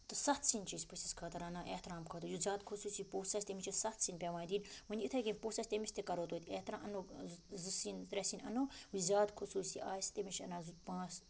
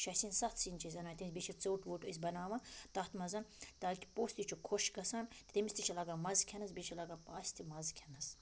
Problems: background sounds at intervals